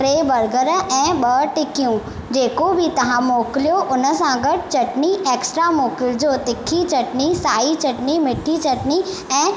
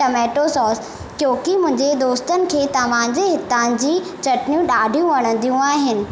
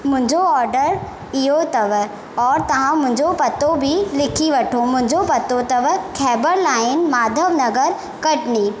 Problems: constant background noise, echo